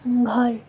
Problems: none marked